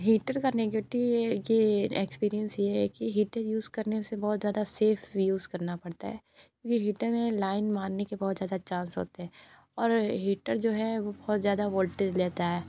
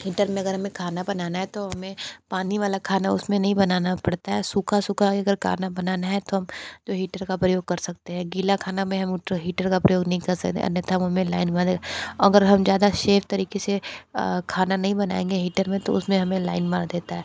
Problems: background sounds at intervals